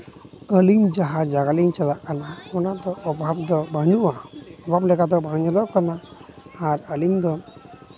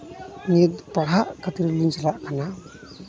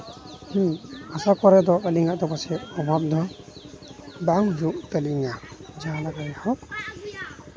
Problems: constant background noise, continuous background conversations